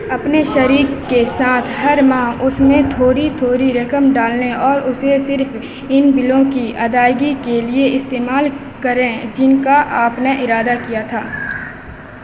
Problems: constant background noise